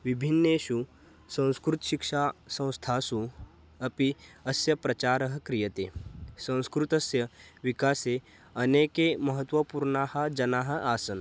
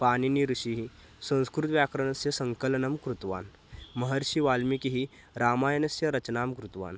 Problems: none marked